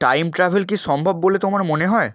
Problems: constant background noise, background conversations at intervals